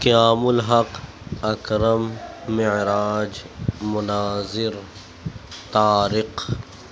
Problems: constant background noise